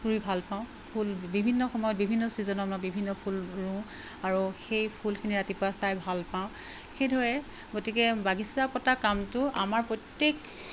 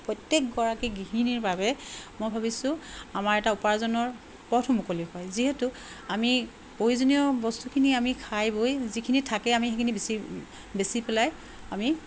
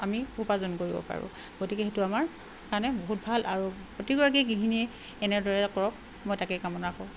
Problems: constant background noise